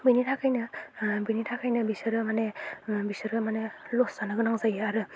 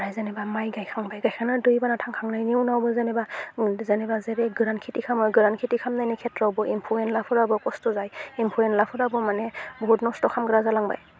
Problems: low volume